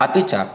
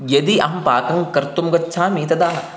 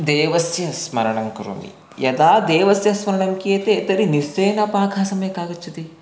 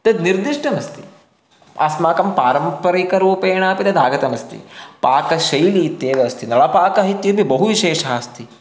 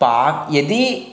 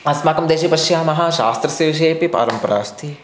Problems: constant background noise